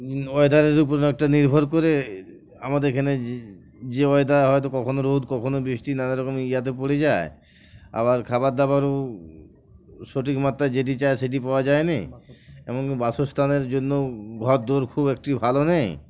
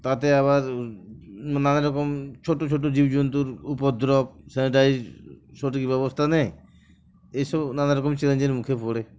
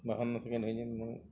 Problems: background sounds at intervals, background conversations at intervals